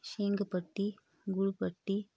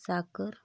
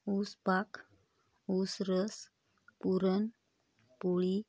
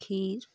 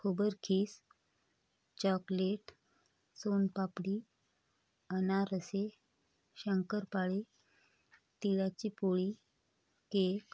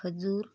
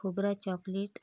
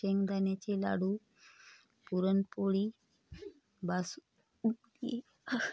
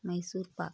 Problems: constant background noise, background conversations at intervals